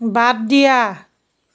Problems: none marked